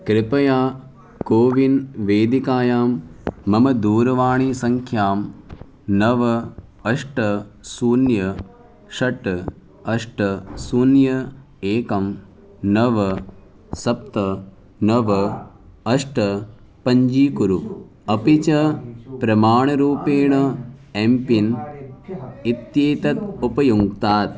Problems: background sounds at intervals, continuous background conversations